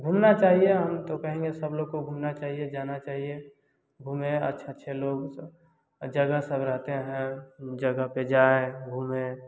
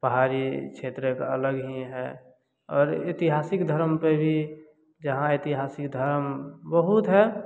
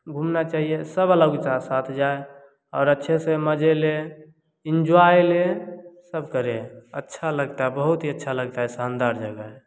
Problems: none marked